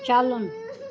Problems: constant background noise